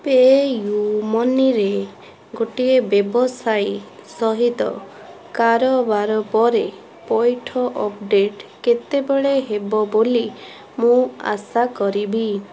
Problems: constant background noise, continuous background conversations